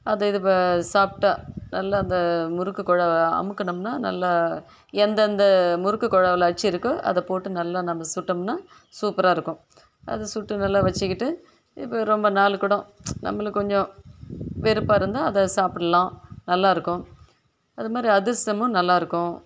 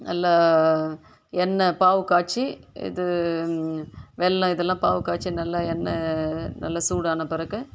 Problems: background sounds at intervals